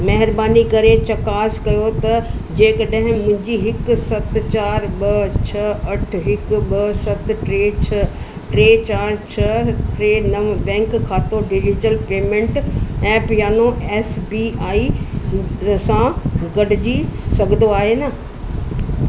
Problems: constant background noise, echo